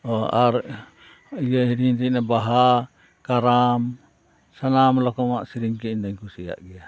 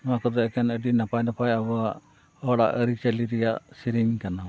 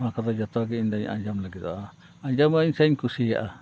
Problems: constant background noise, background conversations at intervals